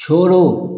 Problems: constant background noise, echo